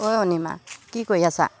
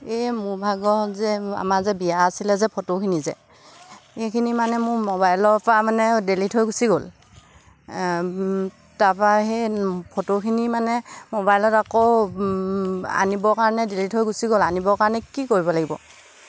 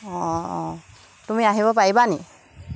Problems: constant background noise